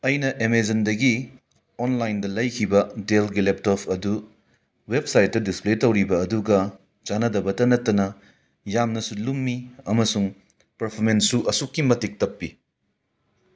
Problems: none marked